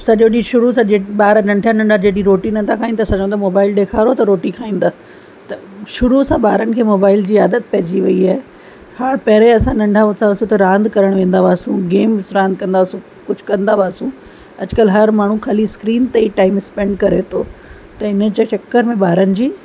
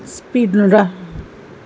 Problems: constant background noise